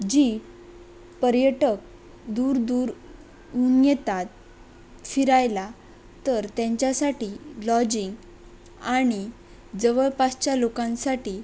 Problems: constant background noise